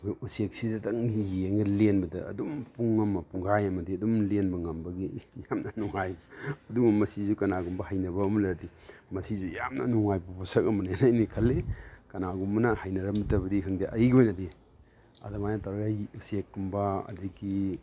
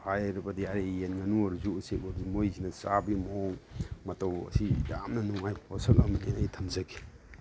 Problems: none marked